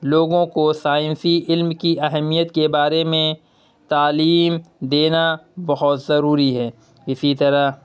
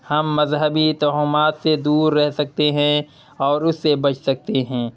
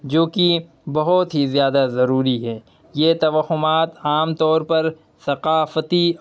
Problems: none marked